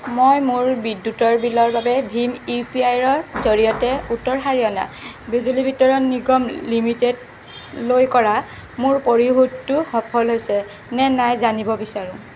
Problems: constant background noise